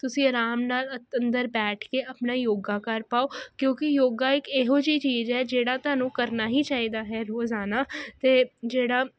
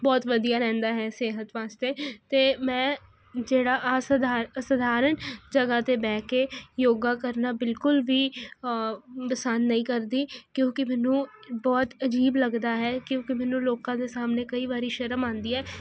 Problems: none marked